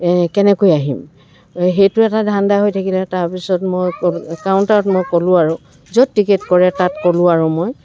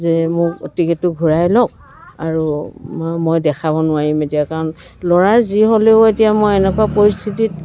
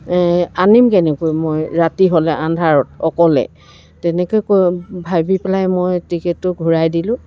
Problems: background sounds at intervals, background conversations at intervals